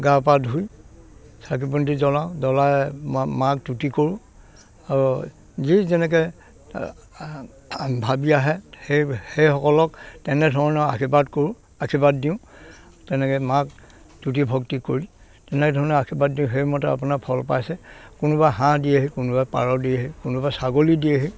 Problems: background sounds at intervals, background conversations at intervals